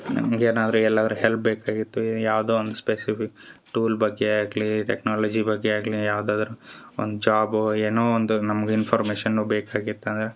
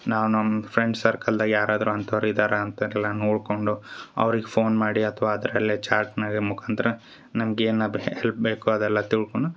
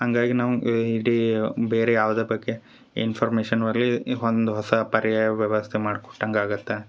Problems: none marked